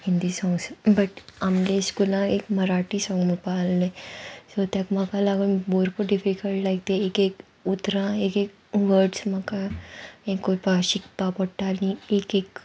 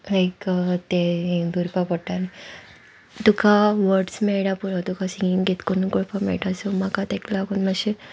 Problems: constant background noise